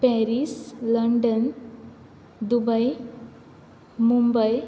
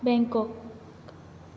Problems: background sounds at intervals